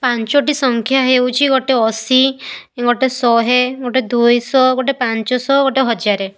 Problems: none marked